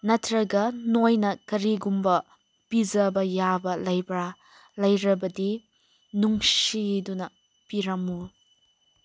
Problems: constant background noise